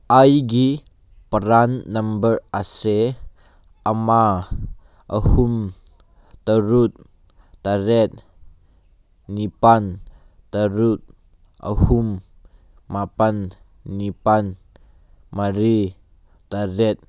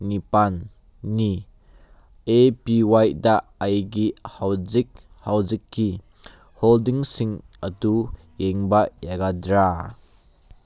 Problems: none marked